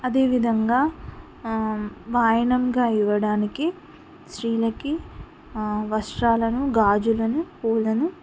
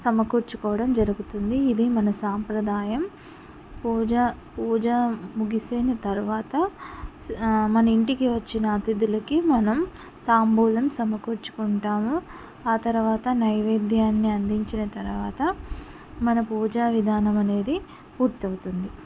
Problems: none marked